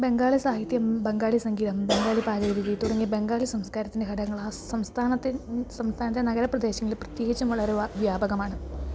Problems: background sounds at intervals, low volume